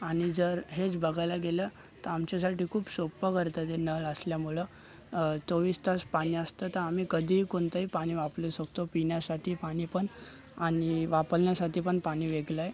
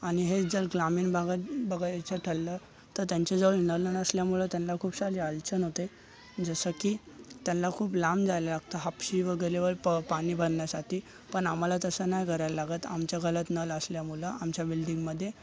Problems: constant background noise, continuous background conversations